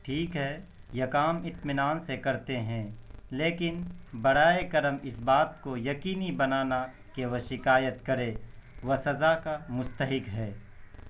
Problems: background sounds at intervals, low volume